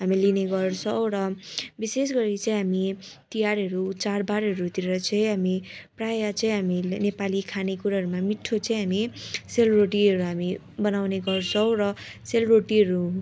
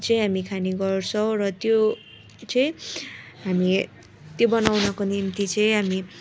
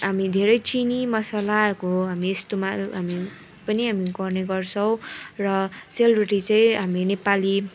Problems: constant background noise, continuous background conversations